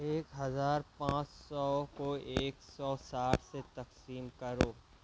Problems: low volume